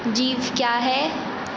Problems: constant background noise